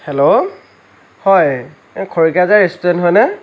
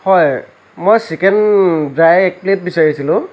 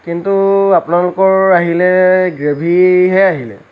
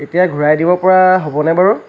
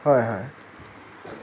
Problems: constant background noise